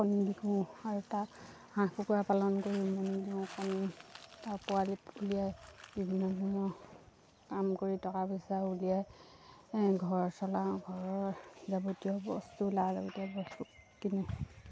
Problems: low volume